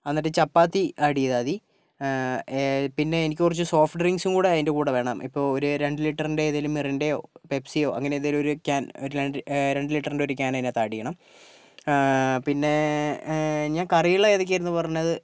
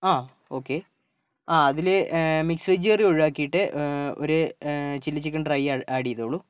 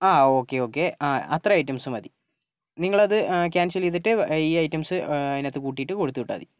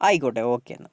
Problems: none marked